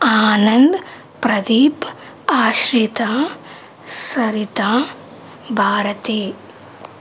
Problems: constant background noise